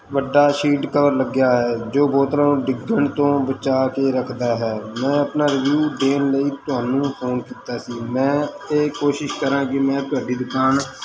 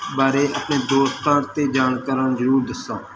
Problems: constant background noise